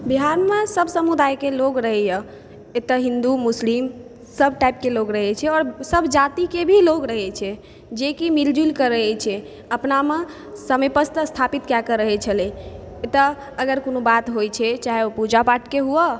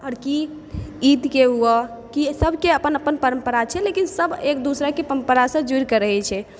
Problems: background sounds at intervals